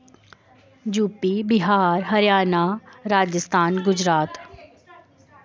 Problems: constant background noise